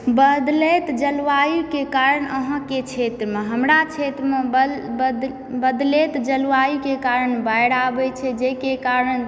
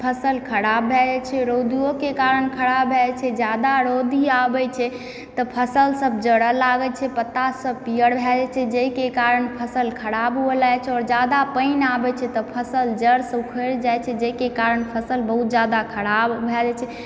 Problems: background sounds at intervals